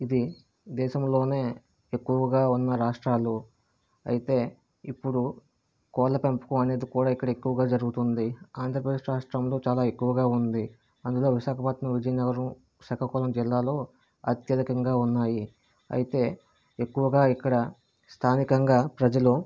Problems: constant background noise